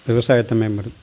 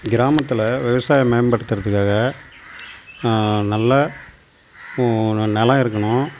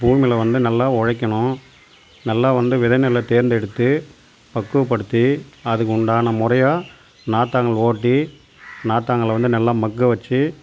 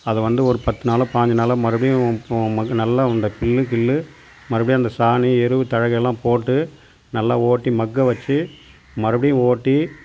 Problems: none marked